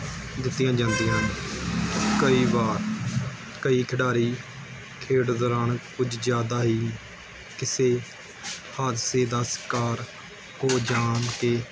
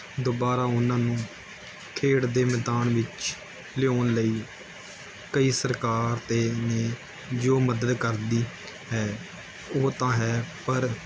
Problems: constant background noise